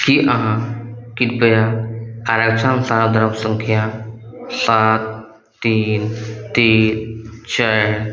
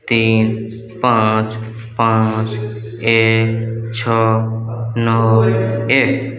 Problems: none marked